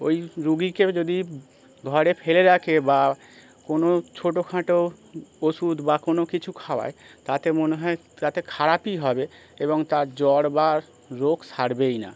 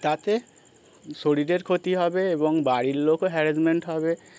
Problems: constant background noise